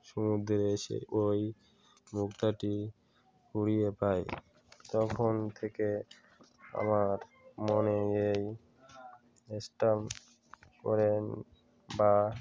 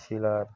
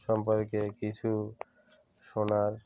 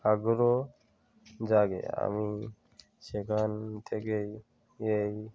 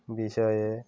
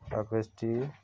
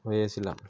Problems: continuous background conversations